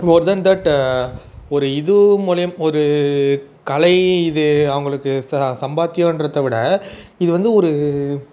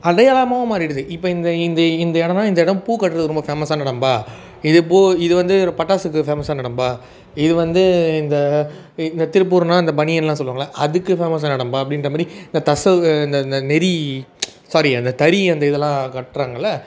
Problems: background sounds at intervals, background conversations at intervals